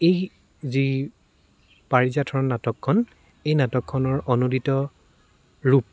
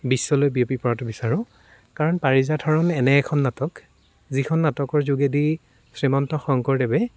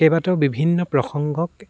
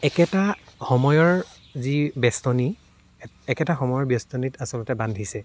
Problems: none marked